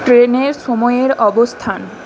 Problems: constant background noise